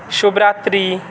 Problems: constant background noise